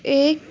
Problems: background sounds at intervals